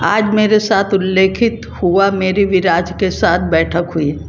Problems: none marked